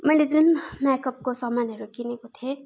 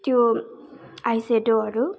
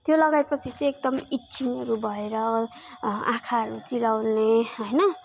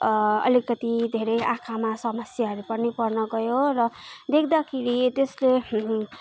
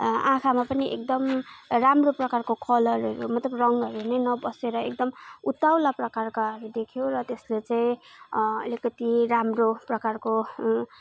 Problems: background conversations at intervals